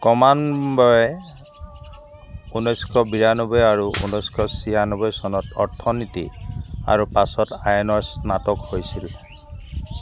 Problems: background sounds at intervals